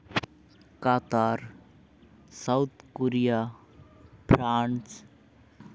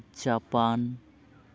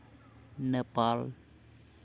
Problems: constant background noise, background conversations at intervals